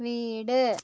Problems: none marked